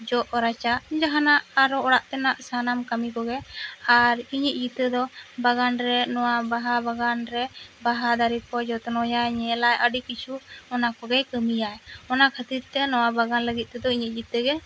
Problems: constant background noise